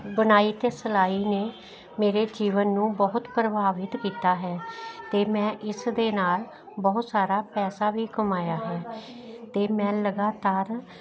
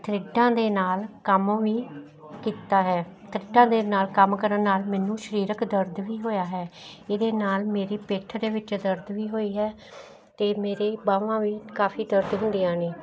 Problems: none marked